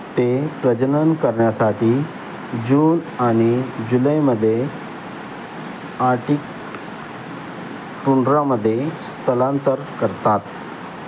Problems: constant background noise